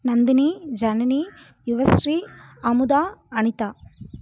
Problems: none marked